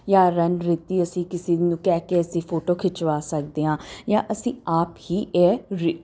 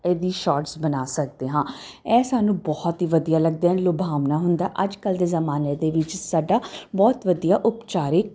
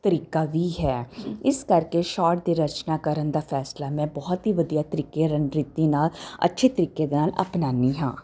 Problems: constant background noise